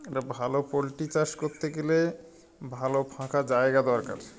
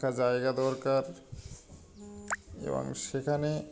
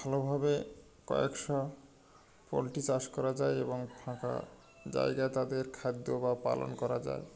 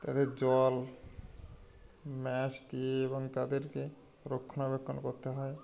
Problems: none marked